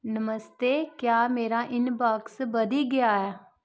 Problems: none marked